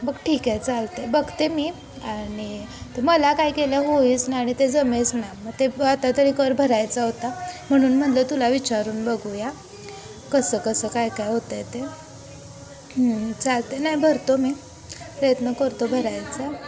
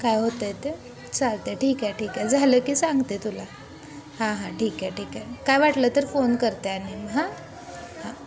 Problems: constant background noise, continuous background conversations